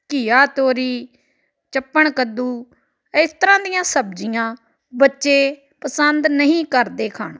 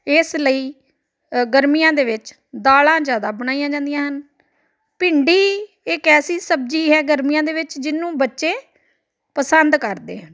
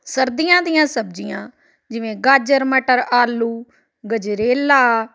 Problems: background conversations at intervals